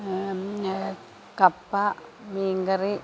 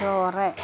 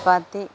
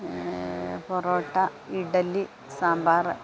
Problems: constant background noise, low volume